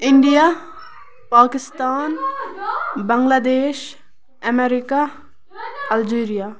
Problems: background sounds at intervals, continuous background conversations